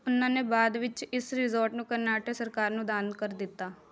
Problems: background sounds at intervals